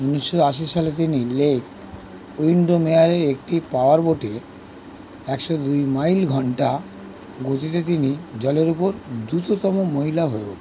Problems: constant background noise